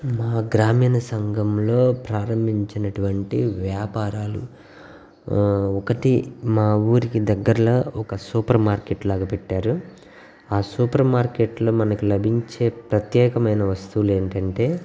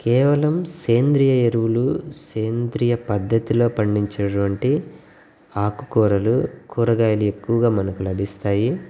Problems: background sounds at intervals